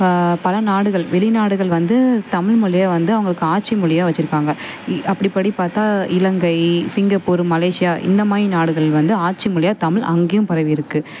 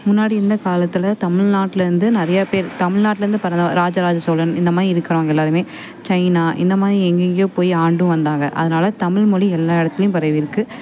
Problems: none marked